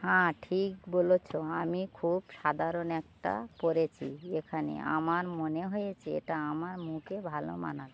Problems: none marked